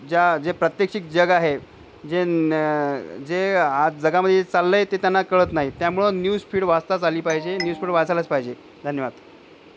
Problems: background sounds at intervals